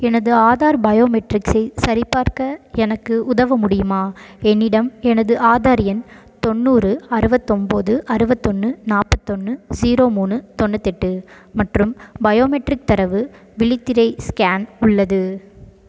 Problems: none marked